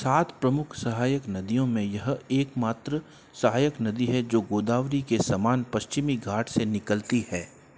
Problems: constant background noise